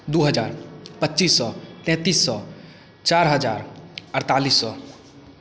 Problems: none marked